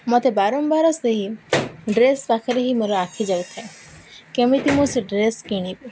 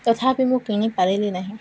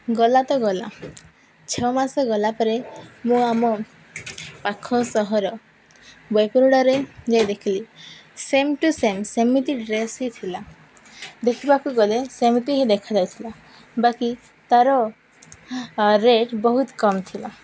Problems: none marked